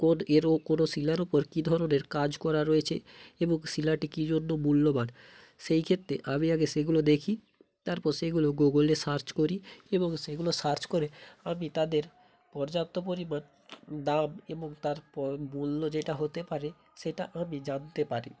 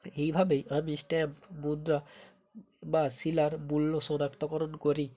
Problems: background sounds at intervals